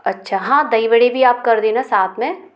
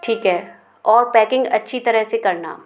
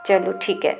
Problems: constant background noise